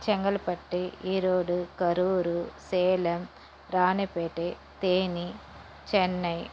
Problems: constant background noise